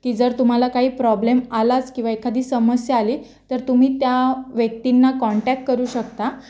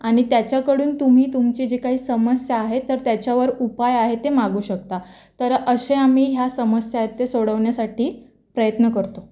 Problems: constant background noise